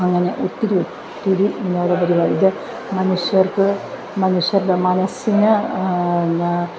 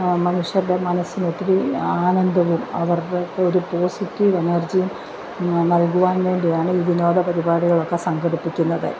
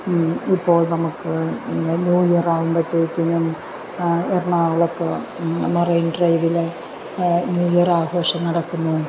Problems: constant background noise